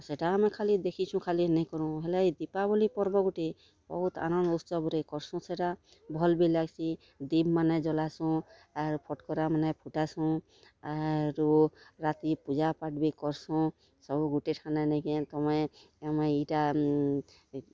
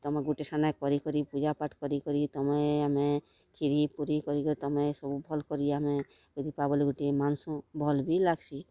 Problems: background sounds at intervals, background conversations at intervals